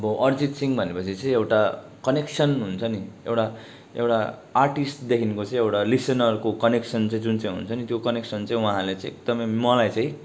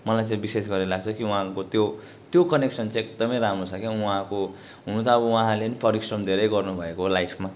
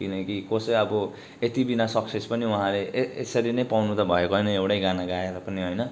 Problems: background sounds at intervals